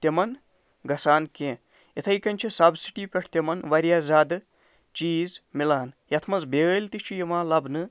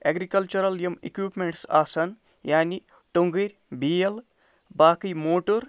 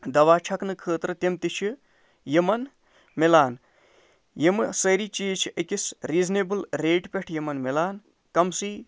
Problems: none marked